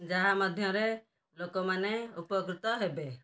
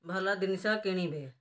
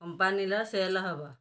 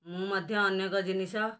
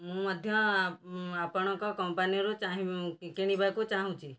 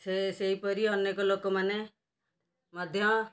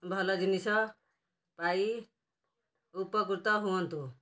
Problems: background sounds at intervals, low volume